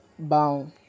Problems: none marked